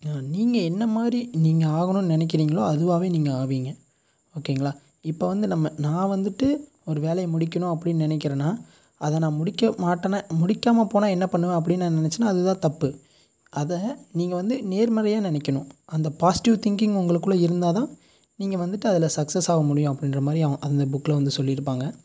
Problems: constant background noise